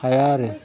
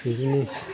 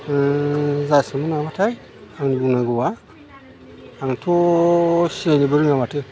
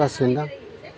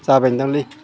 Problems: constant background noise